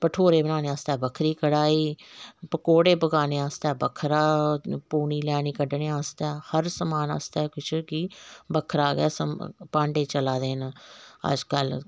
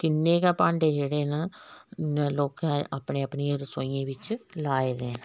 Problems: background sounds at intervals